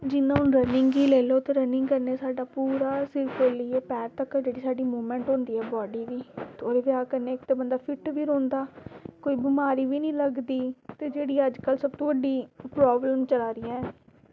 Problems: constant background noise